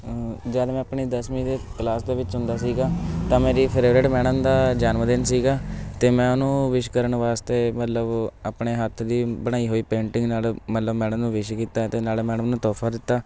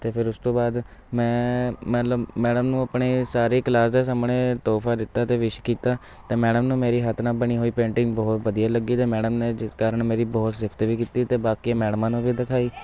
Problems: constant background noise, background conversations at intervals